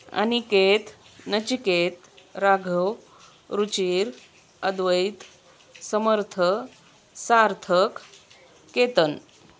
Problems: constant background noise, background conversations at intervals